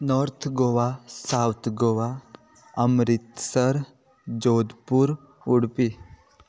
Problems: background sounds at intervals